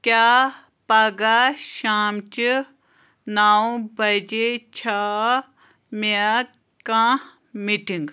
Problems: constant background noise